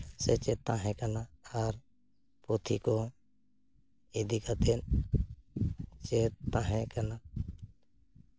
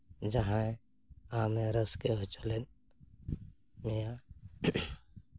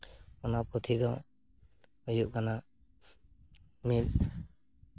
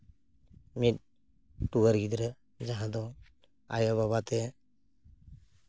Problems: none marked